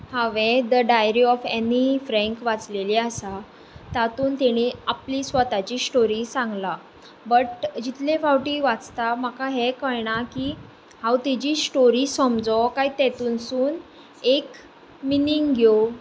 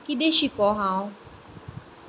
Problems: constant background noise